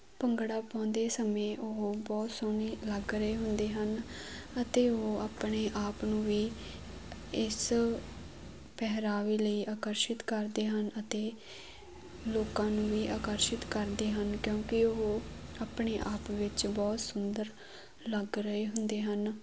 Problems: none marked